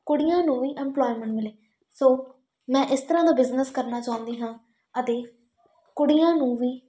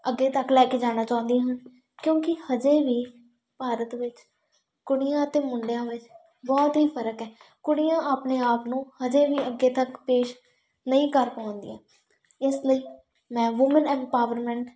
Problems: background sounds at intervals